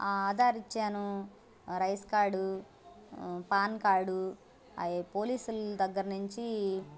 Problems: constant background noise, background conversations at intervals